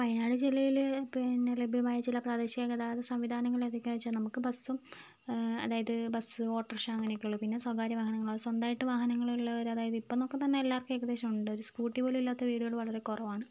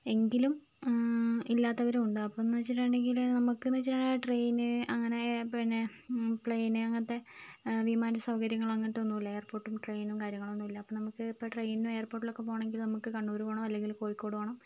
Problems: low volume